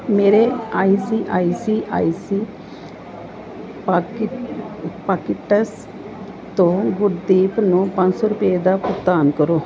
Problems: none marked